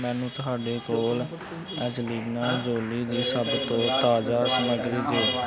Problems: continuous background conversations